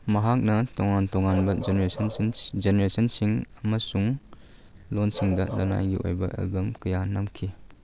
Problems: background sounds at intervals